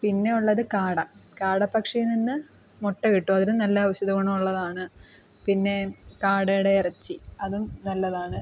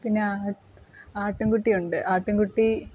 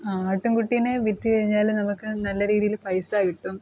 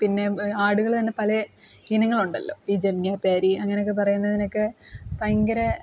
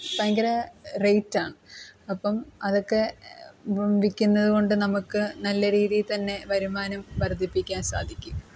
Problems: background sounds at intervals, background conversations at intervals